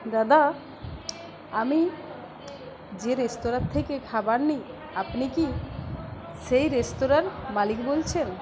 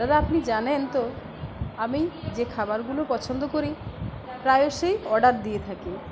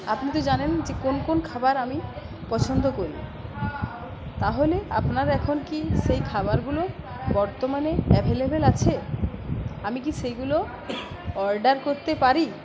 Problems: continuous background conversations